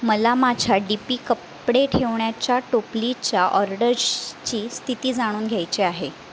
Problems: constant background noise